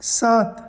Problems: constant background noise